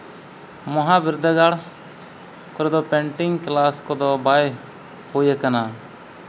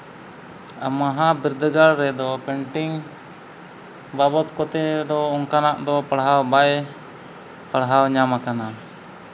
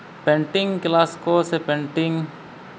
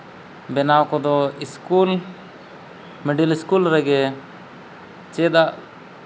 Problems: background sounds at intervals